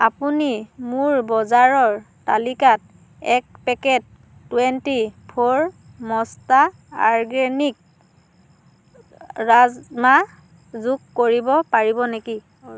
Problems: constant background noise